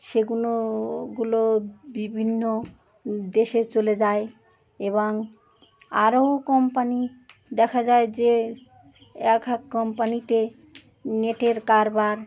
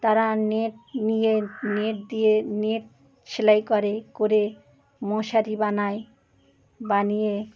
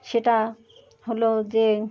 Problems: constant background noise, continuous background conversations